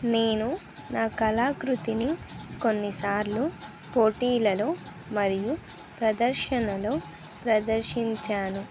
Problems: none marked